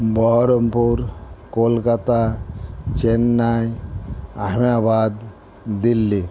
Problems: constant background noise